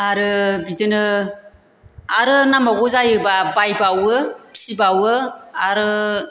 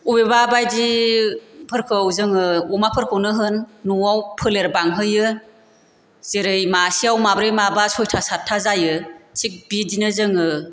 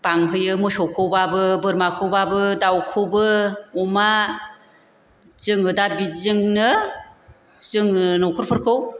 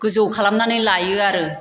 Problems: none marked